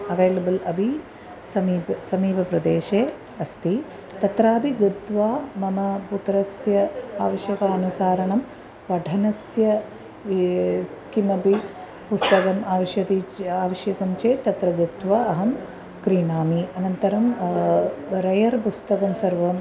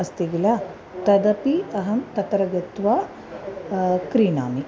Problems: none marked